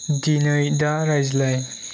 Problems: constant background noise